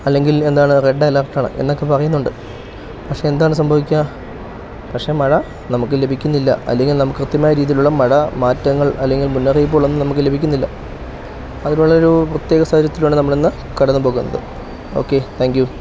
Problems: background sounds at intervals